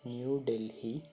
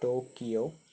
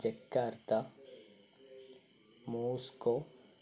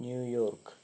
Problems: low volume